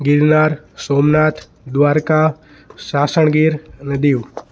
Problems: none marked